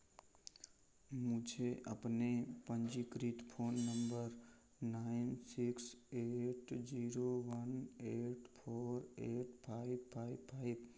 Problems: none marked